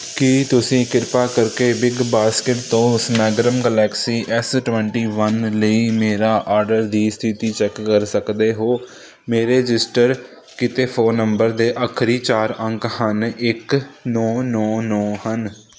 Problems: constant background noise